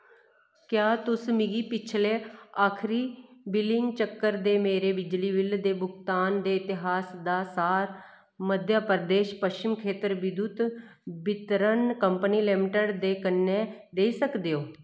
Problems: none marked